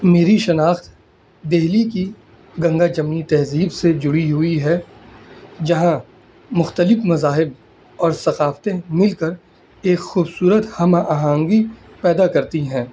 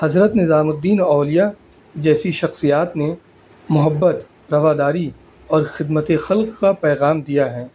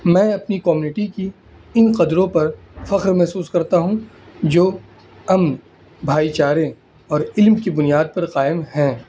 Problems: constant background noise